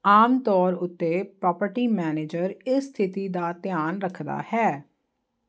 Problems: constant background noise